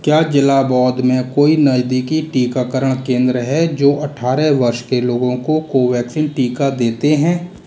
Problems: none marked